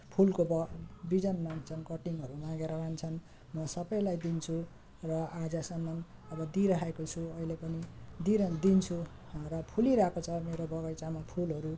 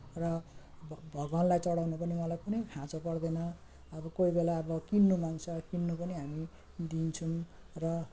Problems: constant background noise, low volume